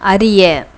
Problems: none marked